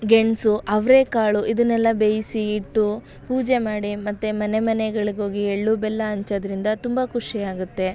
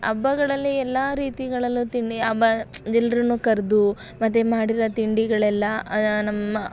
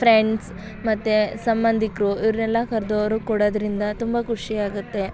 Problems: background sounds at intervals